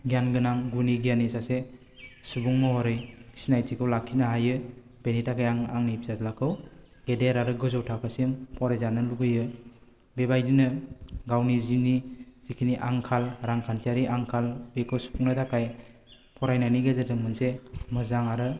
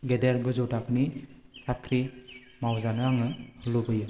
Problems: constant background noise